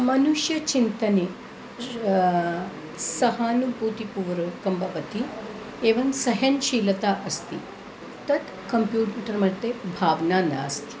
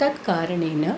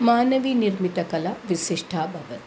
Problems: none marked